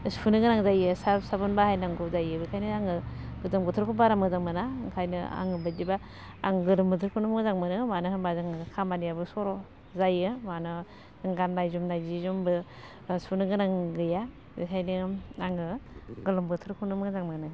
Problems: constant background noise